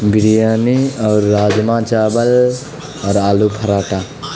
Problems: constant background noise